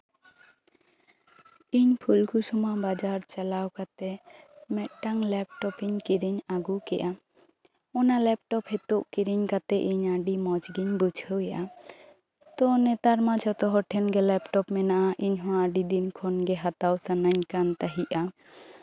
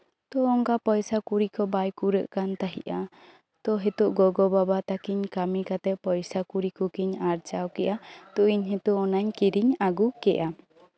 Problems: background conversations at intervals